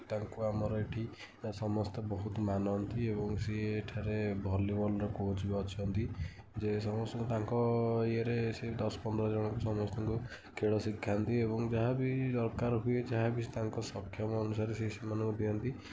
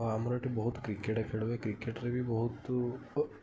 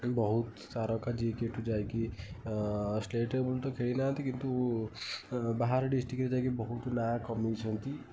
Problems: none marked